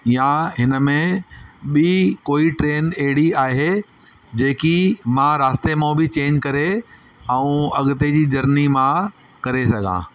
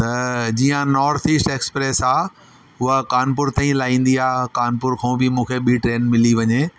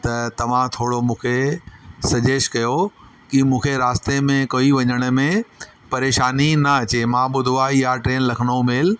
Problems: constant background noise, echo